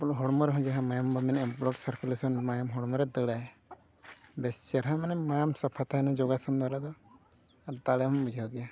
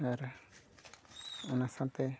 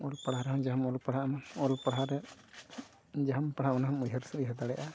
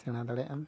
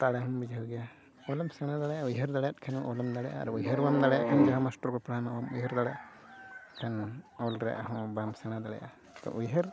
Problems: constant background noise